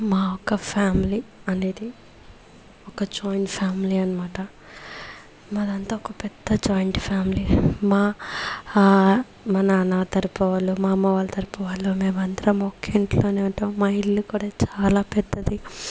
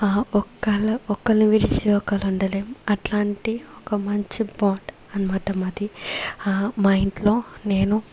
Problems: background sounds at intervals